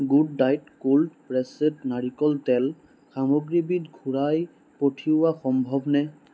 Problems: none marked